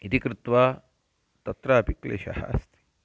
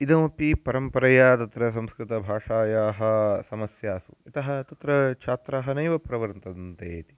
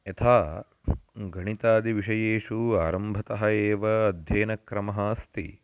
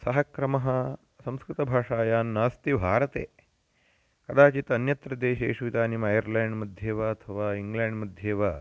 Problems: constant background noise